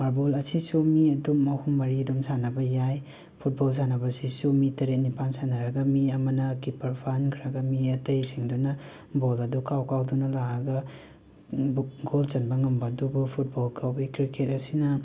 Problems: background sounds at intervals